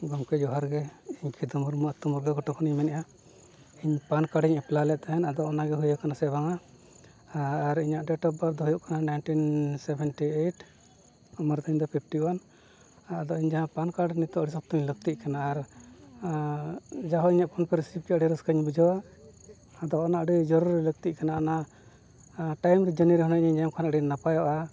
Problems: background sounds at intervals